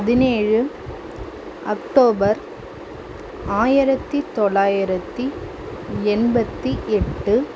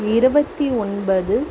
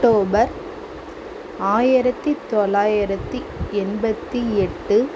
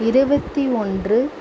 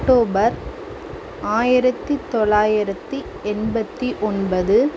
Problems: constant background noise